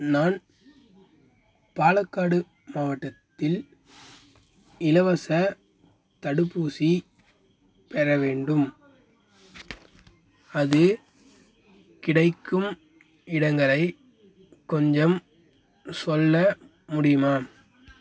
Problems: constant background noise